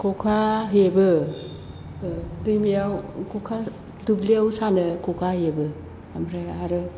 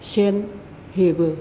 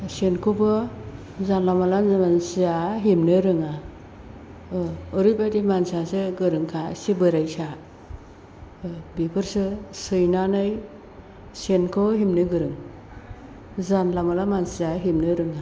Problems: constant background noise